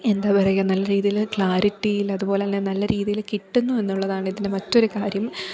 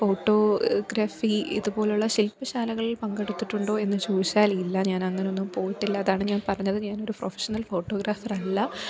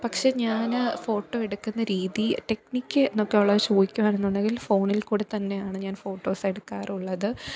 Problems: background conversations at intervals